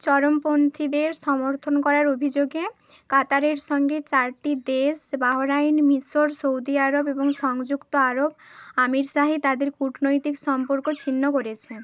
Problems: background sounds at intervals